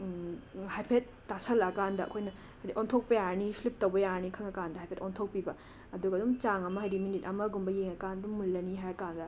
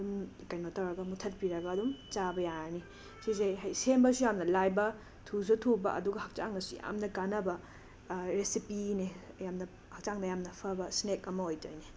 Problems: constant background noise